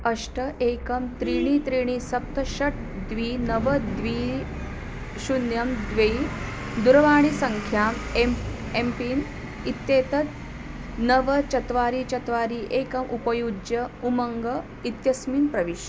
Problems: constant background noise